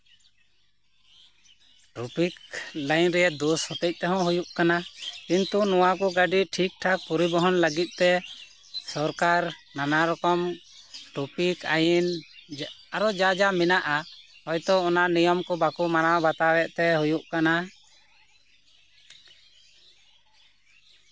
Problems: constant background noise